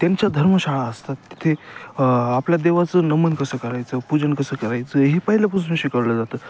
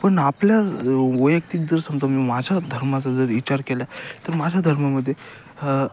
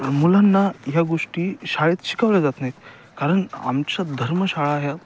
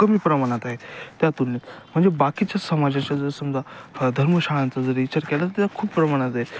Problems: constant background noise